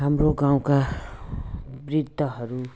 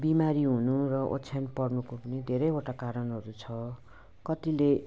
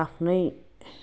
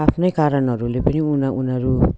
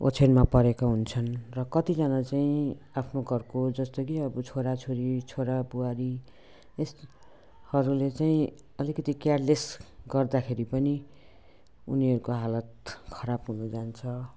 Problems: background sounds at intervals, background conversations at intervals